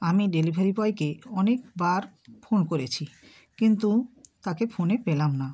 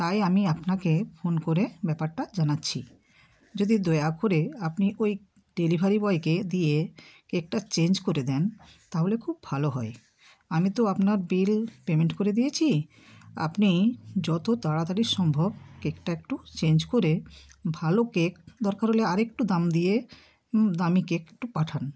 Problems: none marked